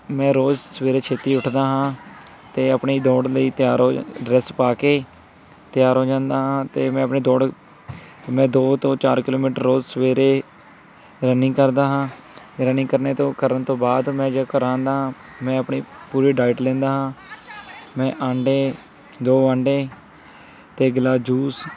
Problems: constant background noise, background conversations at intervals